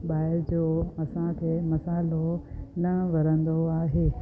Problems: constant background noise, echo